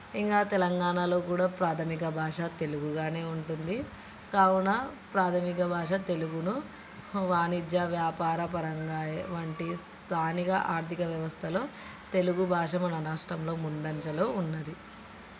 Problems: constant background noise, background conversations at intervals